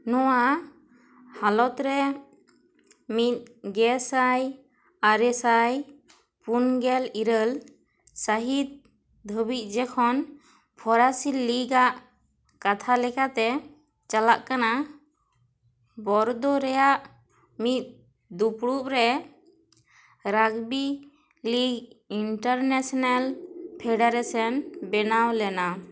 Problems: none marked